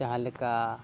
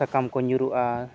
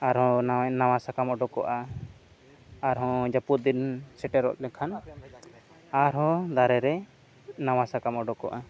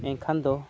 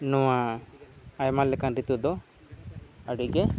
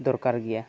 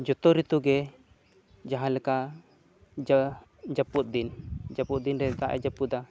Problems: background sounds at intervals, low volume